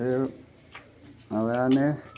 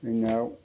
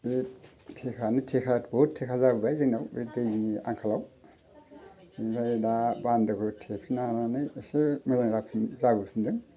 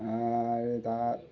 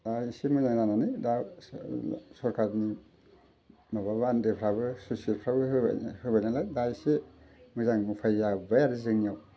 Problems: none marked